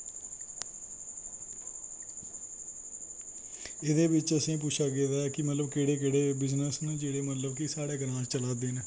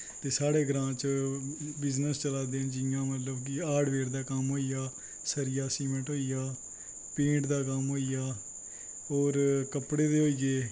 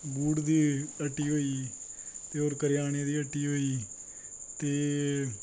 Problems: constant background noise